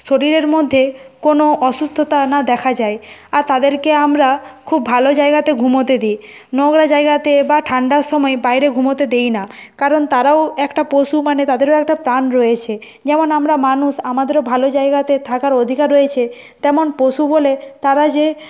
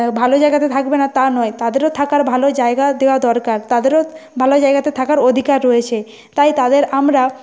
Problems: constant background noise, background conversations at intervals